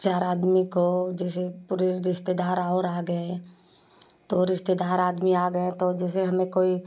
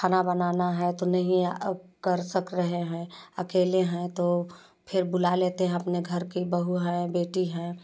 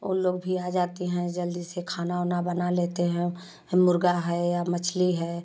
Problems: none marked